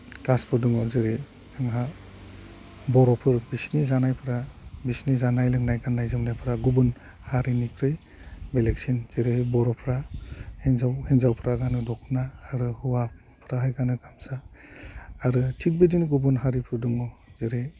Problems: none marked